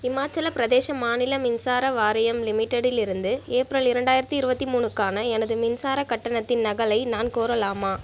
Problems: constant background noise